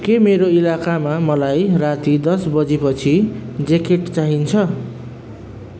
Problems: constant background noise